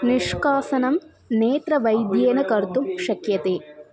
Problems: background sounds at intervals